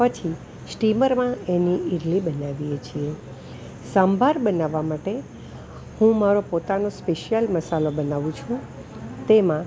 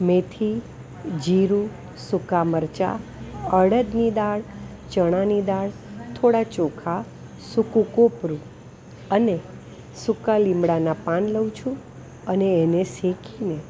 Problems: none marked